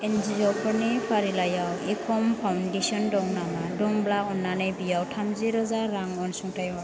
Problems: constant background noise